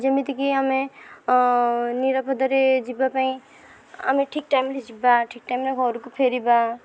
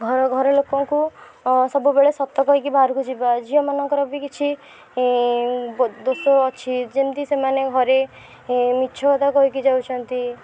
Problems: background sounds at intervals, background conversations at intervals